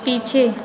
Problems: constant background noise